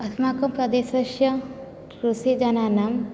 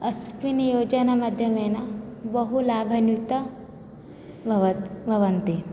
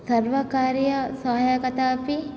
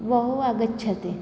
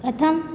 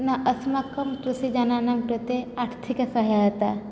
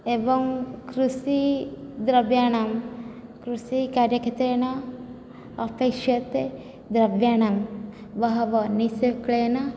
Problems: low volume